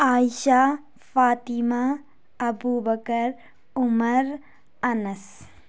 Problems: constant background noise